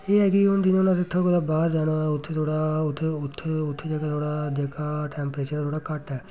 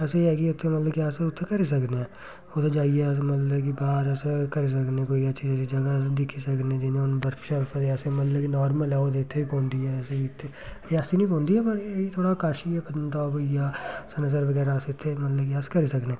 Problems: constant background noise